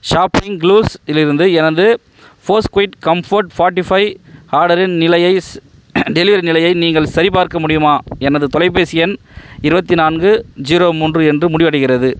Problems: background sounds at intervals